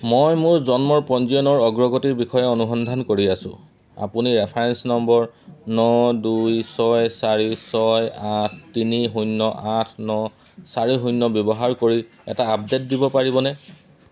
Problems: none marked